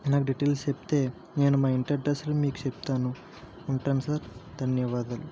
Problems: constant background noise, low volume